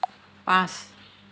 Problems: constant background noise